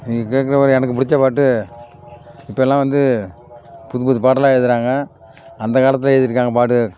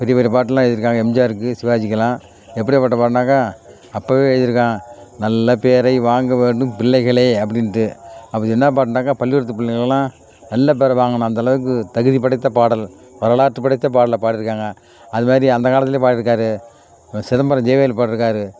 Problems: constant background noise